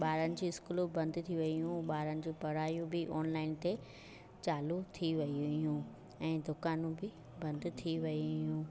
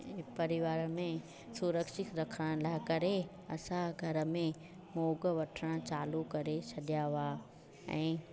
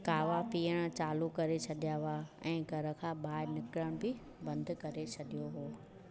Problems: constant background noise, background conversations at intervals